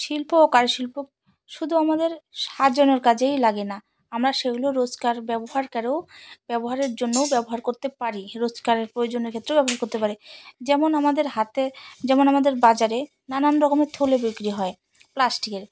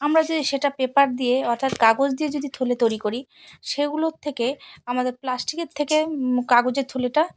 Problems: none marked